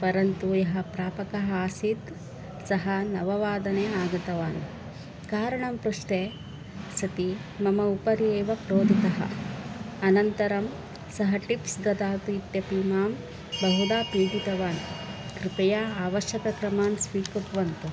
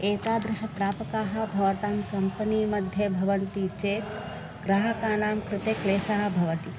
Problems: constant background noise